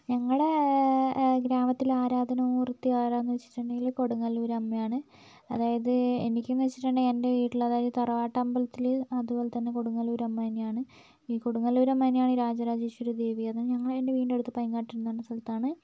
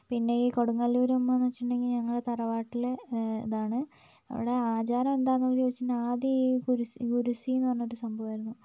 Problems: background sounds at intervals, low volume